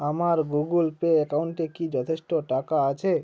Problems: background sounds at intervals